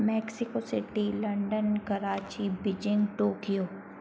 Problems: constant background noise